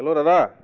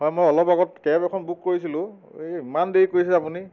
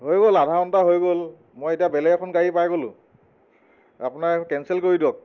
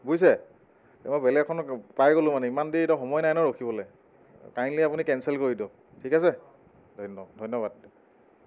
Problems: background sounds at intervals